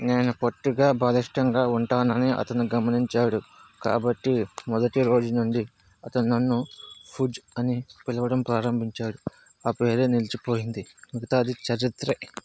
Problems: constant background noise, background conversations at intervals